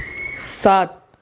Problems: none marked